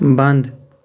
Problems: none marked